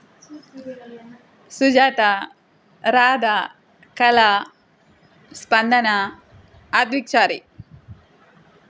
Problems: constant background noise